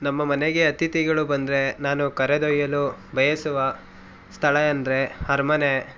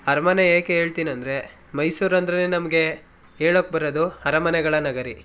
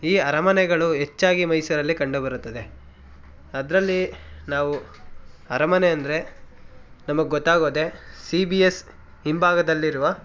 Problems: background sounds at intervals, background conversations at intervals